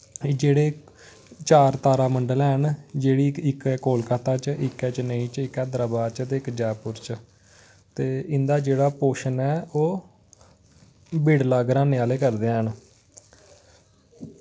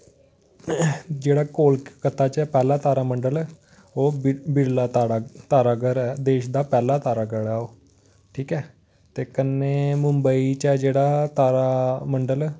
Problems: constant background noise